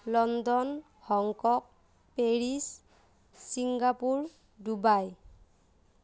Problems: none marked